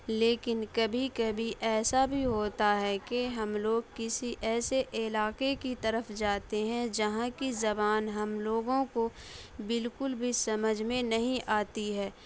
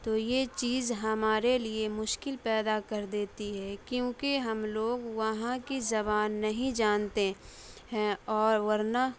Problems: none marked